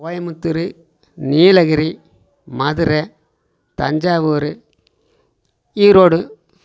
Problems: none marked